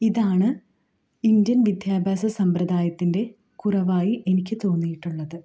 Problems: low volume